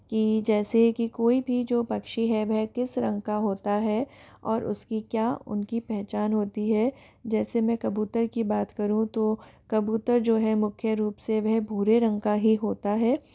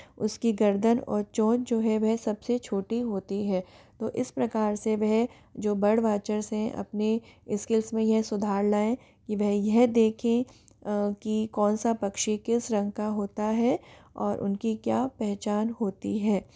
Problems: background sounds at intervals